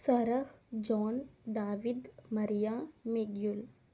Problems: low volume